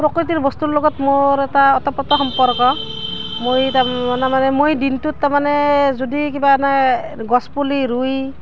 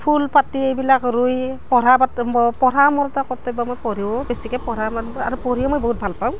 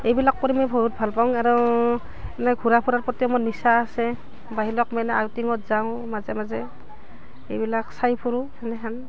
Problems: none marked